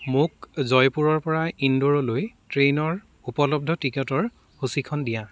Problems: background sounds at intervals